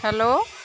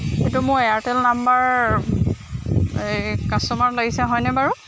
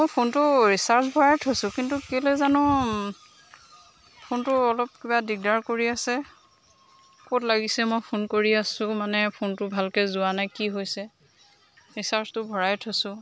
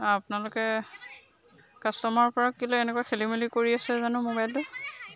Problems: constant background noise